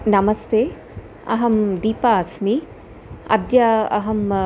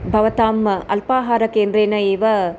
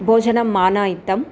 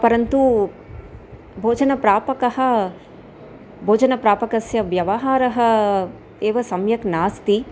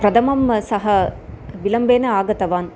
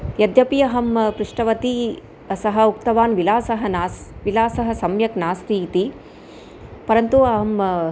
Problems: constant background noise